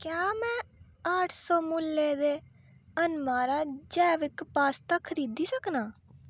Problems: none marked